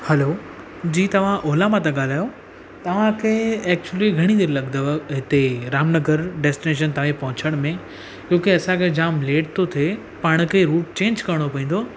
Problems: constant background noise